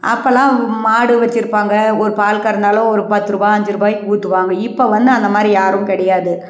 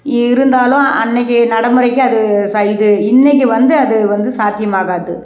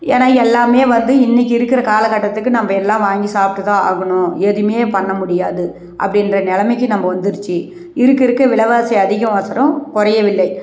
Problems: none marked